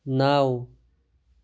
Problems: background sounds at intervals